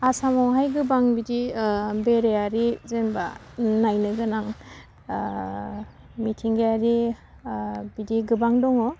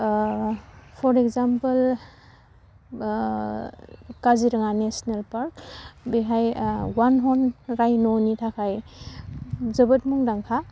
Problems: none marked